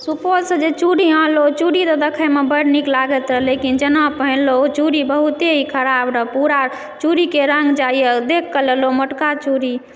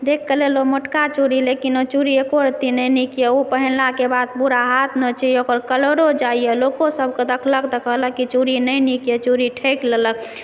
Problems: background sounds at intervals